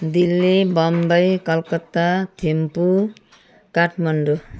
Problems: none marked